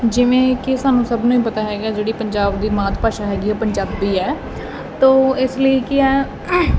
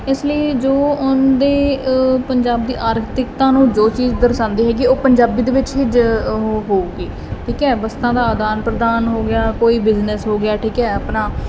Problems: none marked